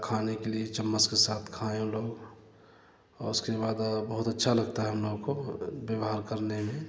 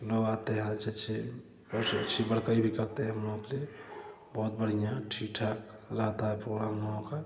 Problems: constant background noise, continuous background conversations